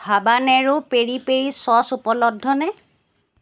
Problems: none marked